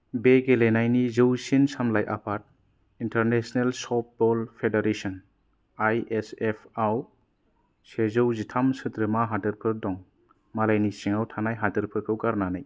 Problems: none marked